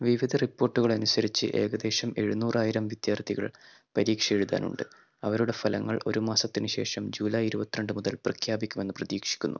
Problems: none marked